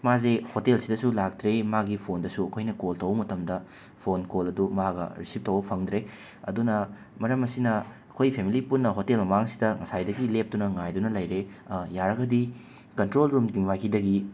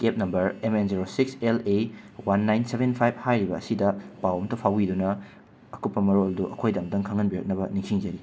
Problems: constant background noise